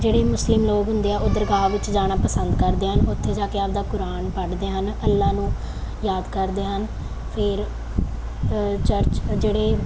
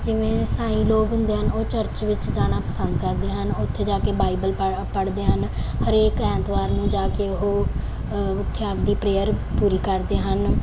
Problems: none marked